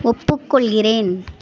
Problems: continuous background conversations